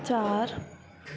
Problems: none marked